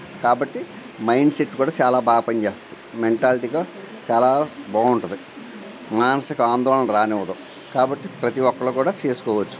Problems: constant background noise